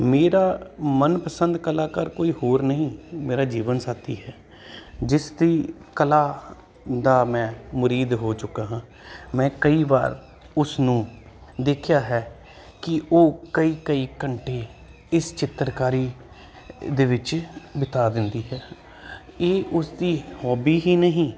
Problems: constant background noise